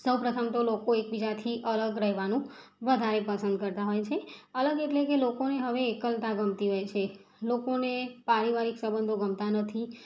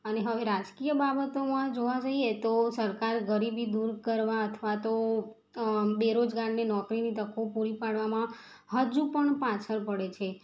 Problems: background sounds at intervals